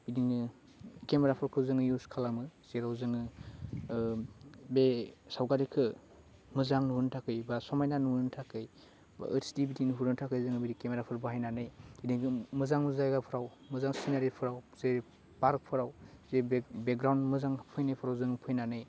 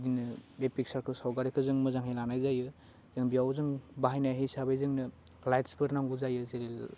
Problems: constant background noise